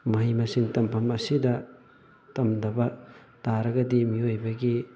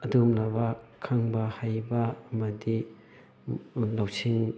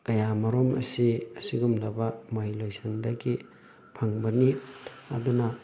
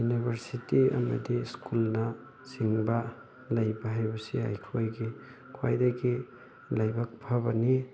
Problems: constant background noise, background conversations at intervals